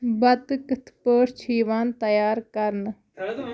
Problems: none marked